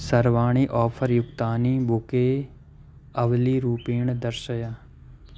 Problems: constant background noise